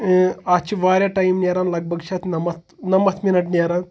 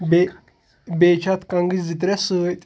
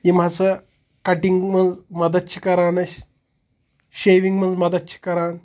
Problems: background conversations at intervals